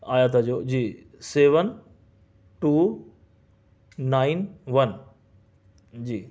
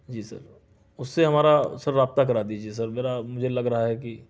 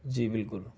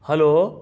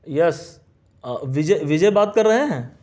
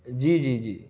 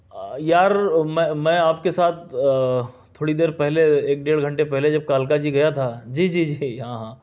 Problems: none marked